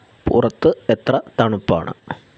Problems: constant background noise